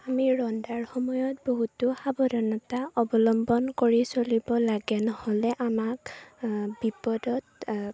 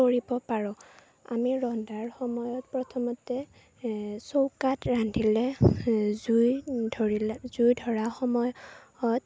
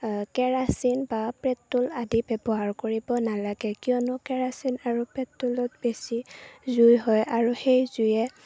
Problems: none marked